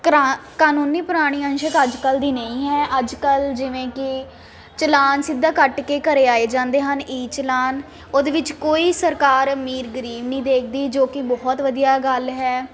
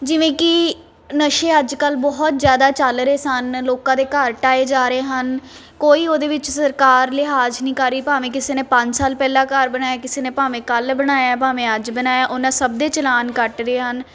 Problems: constant background noise